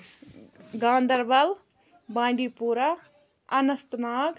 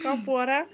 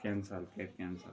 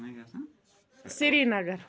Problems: background sounds at intervals